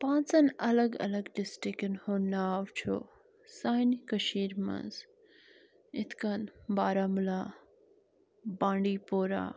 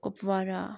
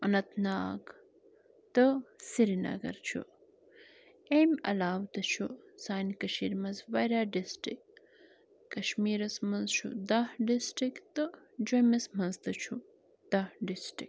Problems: constant background noise